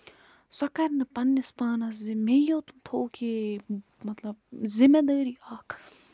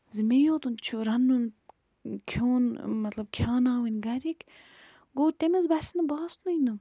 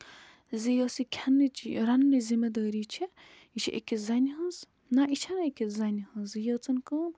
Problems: background sounds at intervals